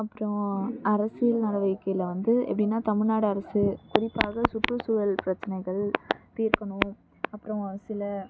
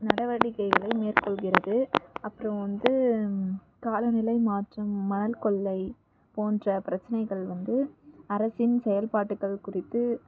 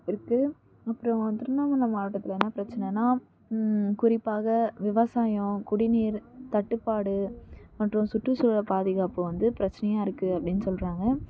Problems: background sounds at intervals